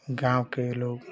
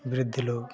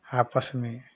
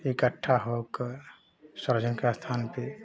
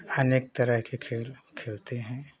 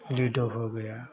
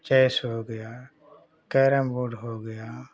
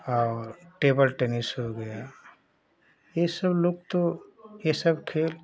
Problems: none marked